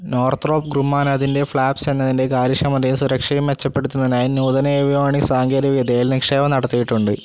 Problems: constant background noise